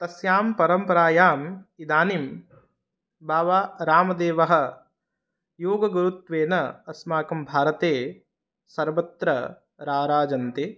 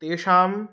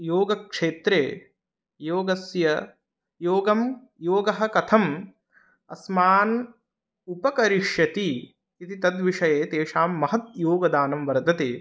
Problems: none marked